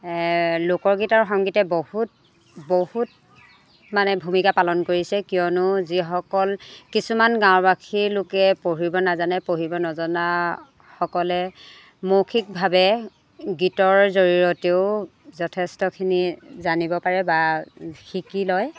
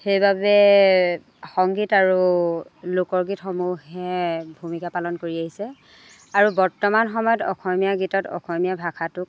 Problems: none marked